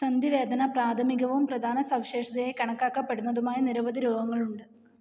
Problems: none marked